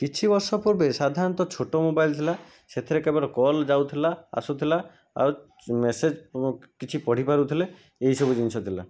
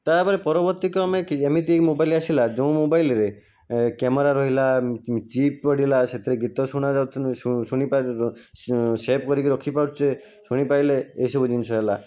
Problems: none marked